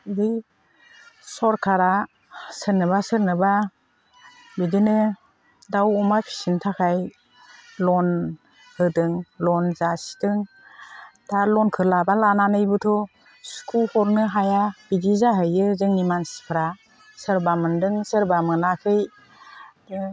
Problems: none marked